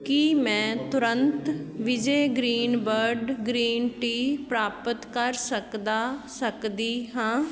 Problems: continuous background conversations